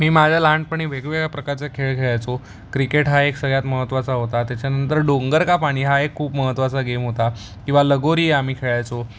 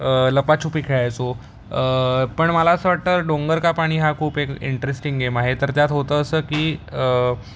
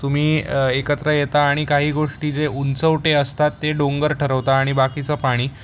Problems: constant background noise